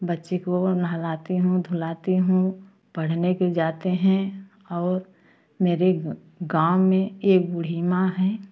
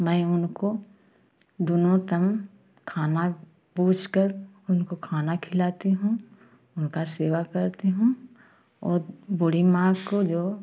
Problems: constant background noise, continuous background conversations